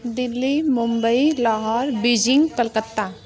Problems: none marked